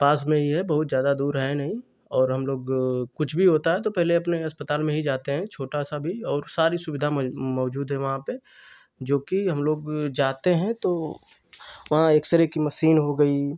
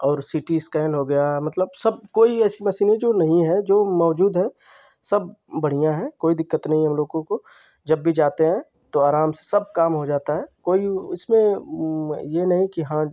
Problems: constant background noise